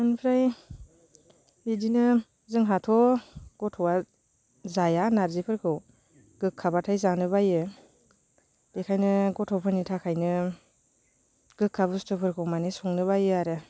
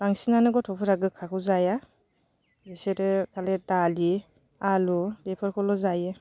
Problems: constant background noise